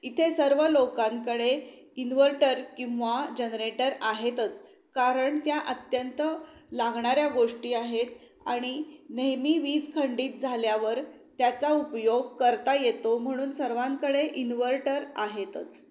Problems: background sounds at intervals